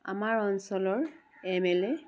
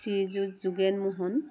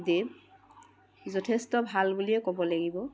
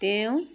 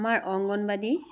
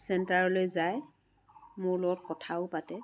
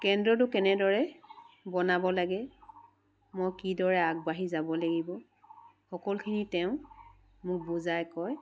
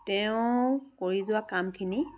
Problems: none marked